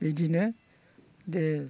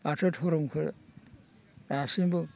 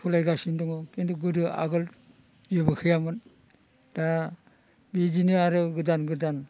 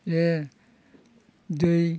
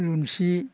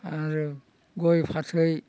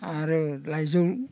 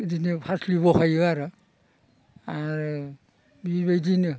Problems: constant background noise